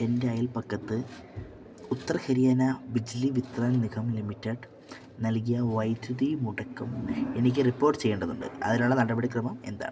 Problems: none marked